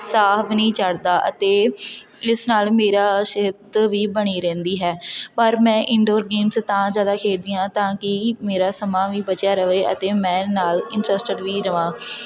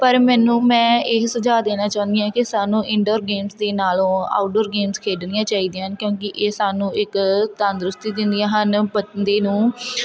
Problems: constant background noise, background conversations at intervals